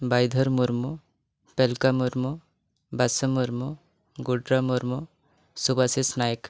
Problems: none marked